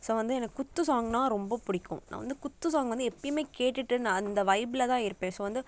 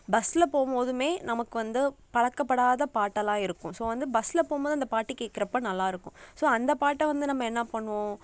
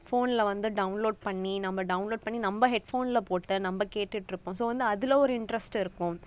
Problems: none marked